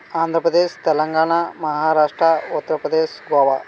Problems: none marked